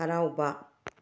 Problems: low volume